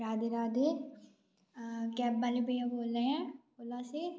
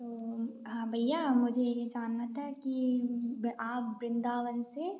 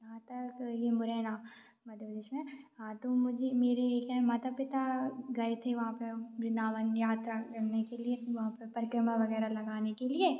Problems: none marked